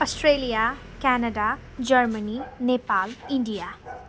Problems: constant background noise